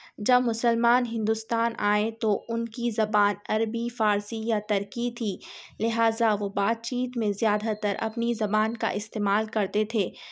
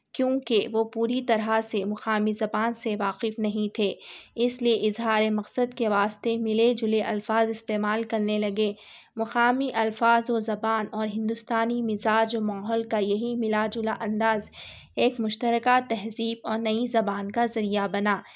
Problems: none marked